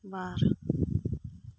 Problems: low volume